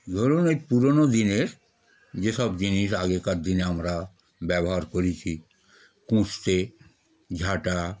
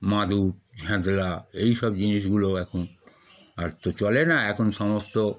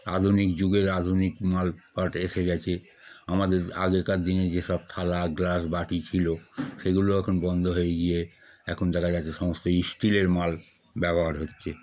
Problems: none marked